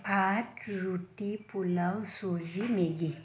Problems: constant background noise